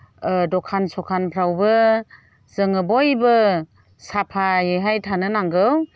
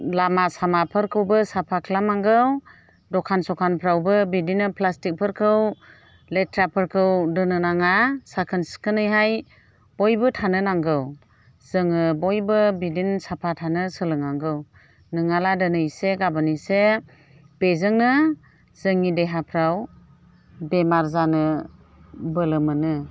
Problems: none marked